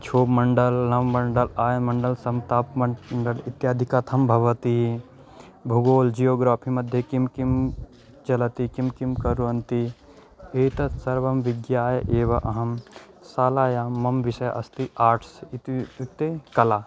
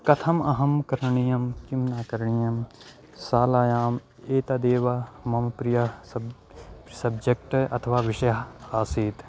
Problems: constant background noise